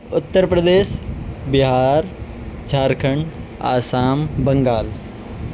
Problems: constant background noise